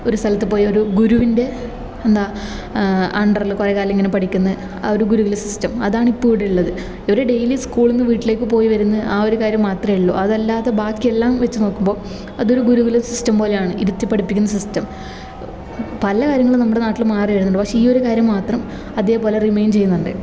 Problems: background sounds at intervals